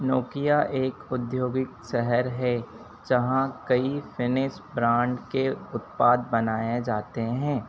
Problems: constant background noise